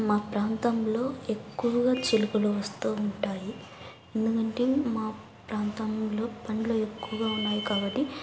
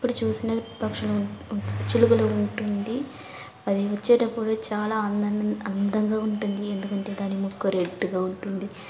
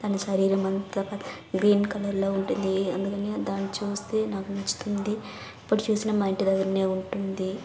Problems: constant background noise, background conversations at intervals